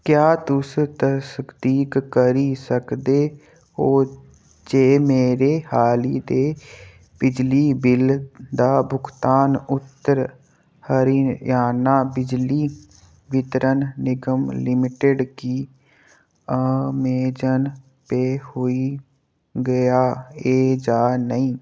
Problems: none marked